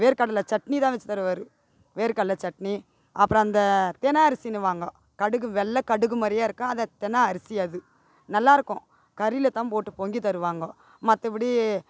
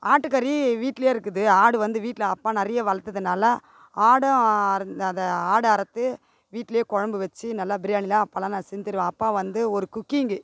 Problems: background sounds at intervals